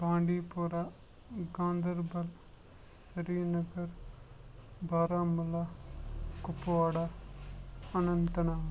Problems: constant background noise, low volume